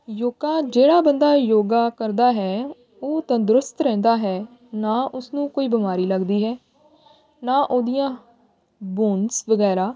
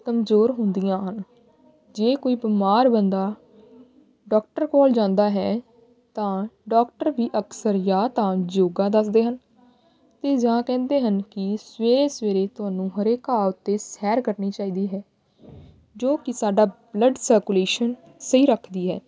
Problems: none marked